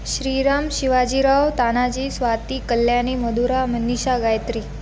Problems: background sounds at intervals